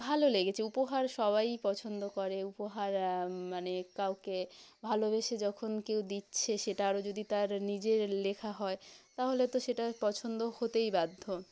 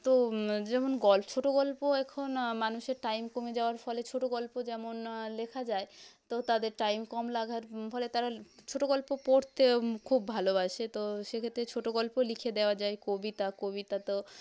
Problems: background sounds at intervals